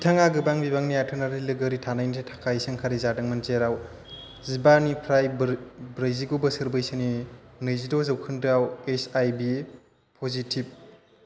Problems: constant background noise